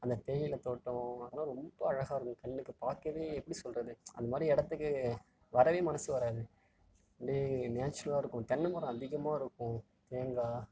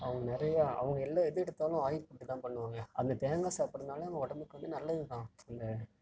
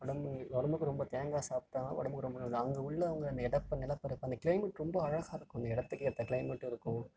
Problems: background sounds at intervals, low volume